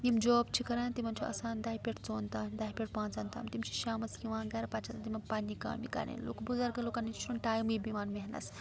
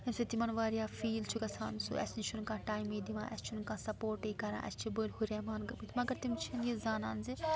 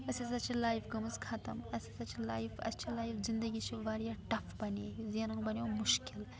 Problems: background sounds at intervals, continuous background conversations